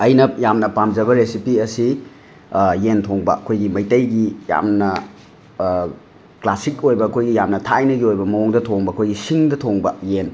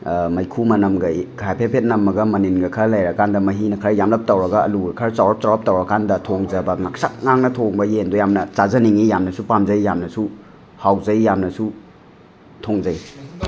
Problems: background sounds at intervals, background conversations at intervals